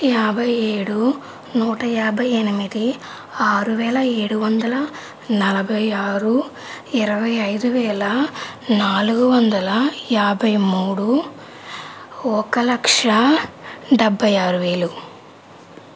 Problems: constant background noise